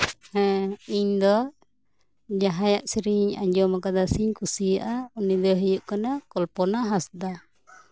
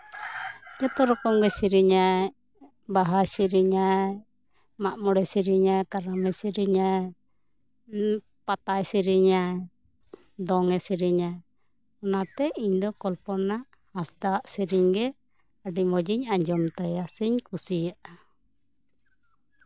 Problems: background sounds at intervals, background conversations at intervals